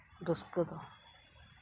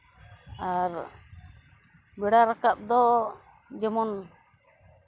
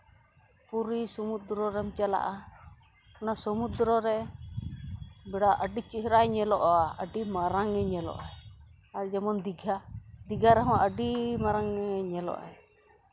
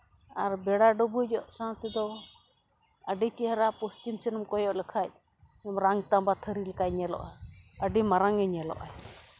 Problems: background sounds at intervals